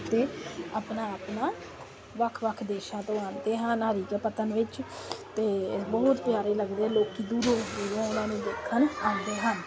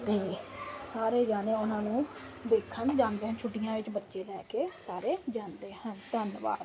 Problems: constant background noise